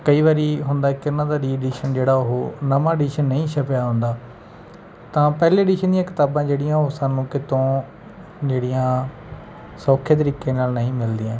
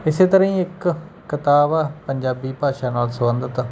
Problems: background sounds at intervals